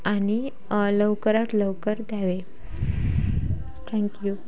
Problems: none marked